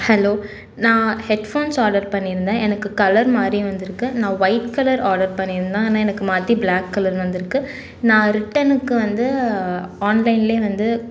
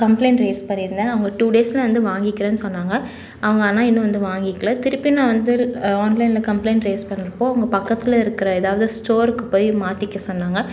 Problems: none marked